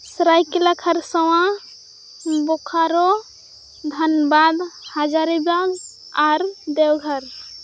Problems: none marked